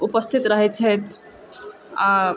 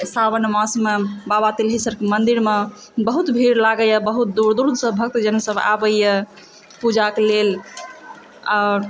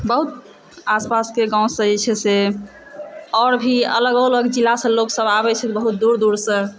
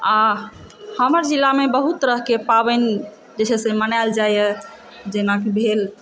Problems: background sounds at intervals, background conversations at intervals